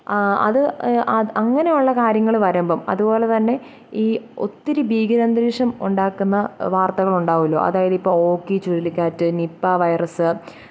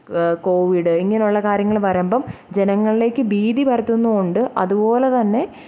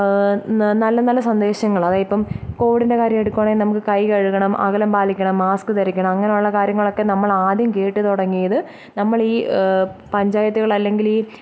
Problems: low volume